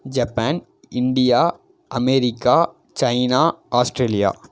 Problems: none marked